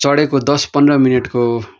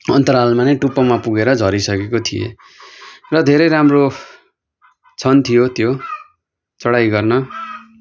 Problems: constant background noise